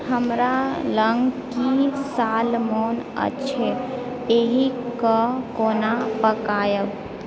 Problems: background conversations at intervals